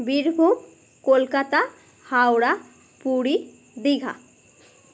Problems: none marked